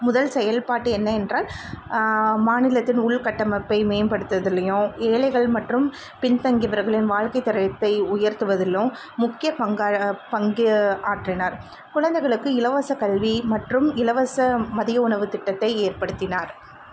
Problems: constant background noise